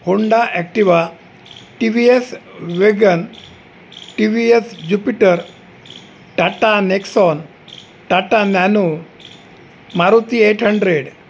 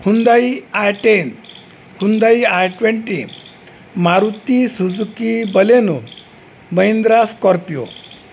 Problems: constant background noise